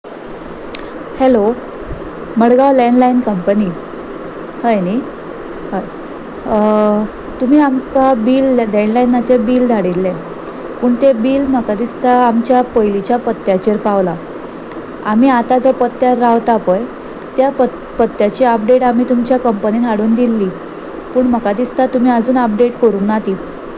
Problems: none marked